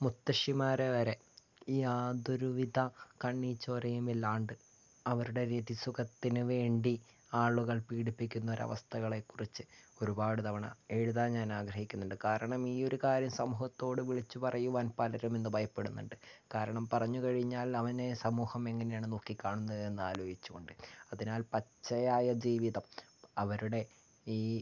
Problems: low volume